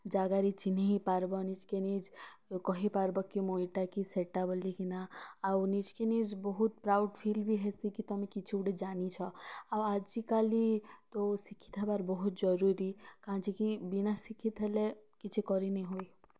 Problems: none marked